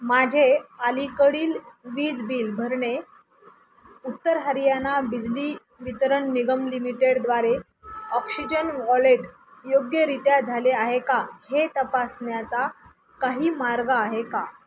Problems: none marked